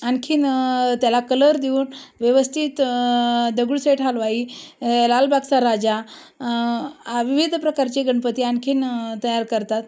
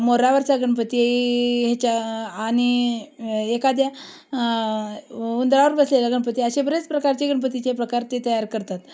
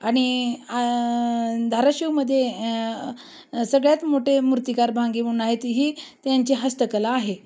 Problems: constant background noise